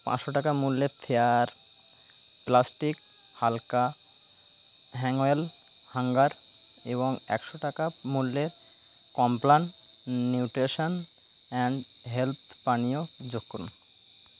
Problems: constant background noise